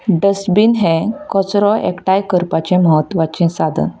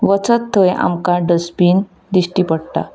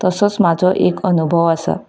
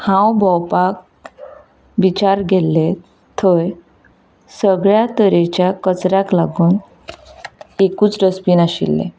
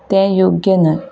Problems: background sounds at intervals